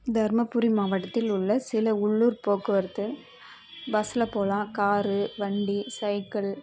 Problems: none marked